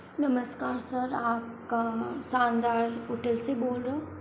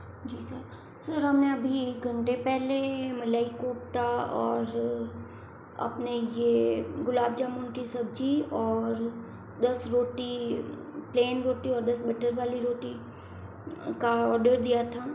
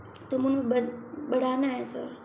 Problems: constant background noise, echo, low volume